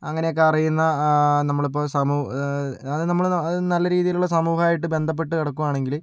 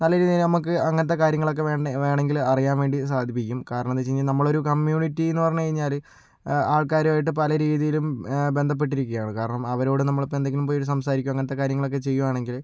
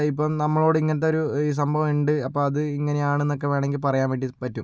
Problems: low volume